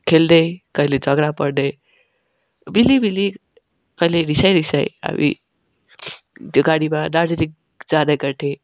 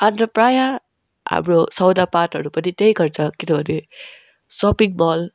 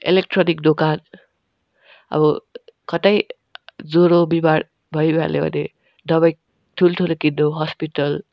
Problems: constant background noise, background conversations at intervals